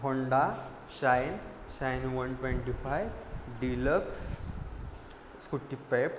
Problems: constant background noise